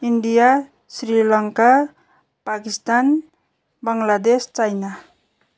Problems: none marked